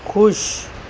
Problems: none marked